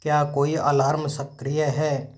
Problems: background sounds at intervals